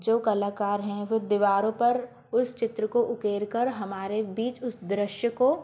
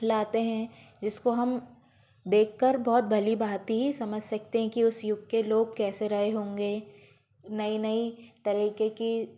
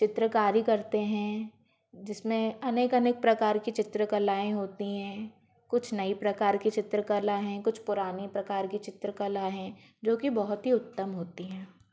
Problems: constant background noise